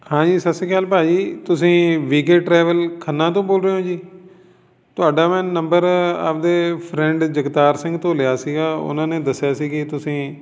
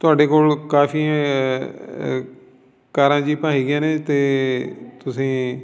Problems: background sounds at intervals, background conversations at intervals